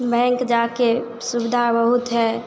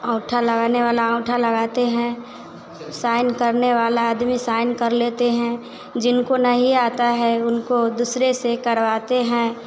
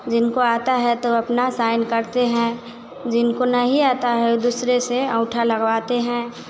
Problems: constant background noise